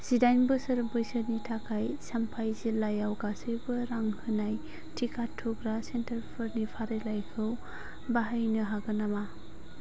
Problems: constant background noise